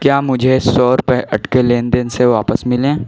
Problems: constant background noise, continuous background conversations